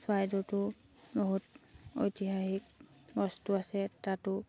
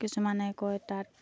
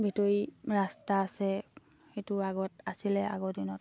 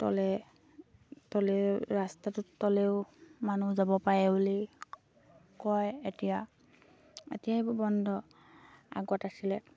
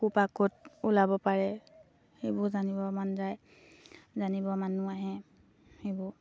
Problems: none marked